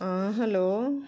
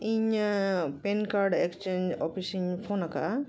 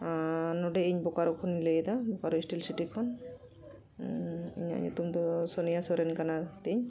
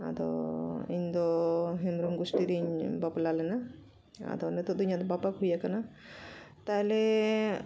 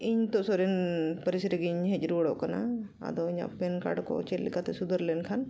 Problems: continuous background conversations